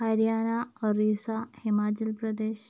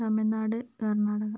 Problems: low volume